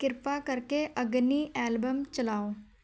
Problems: none marked